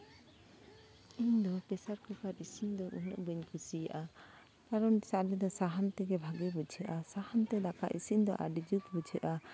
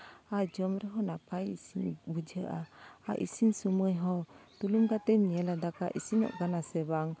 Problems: constant background noise